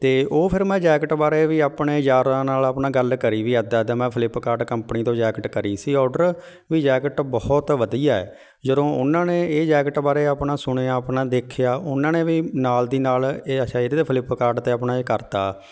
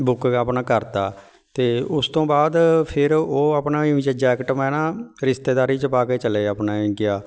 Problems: background sounds at intervals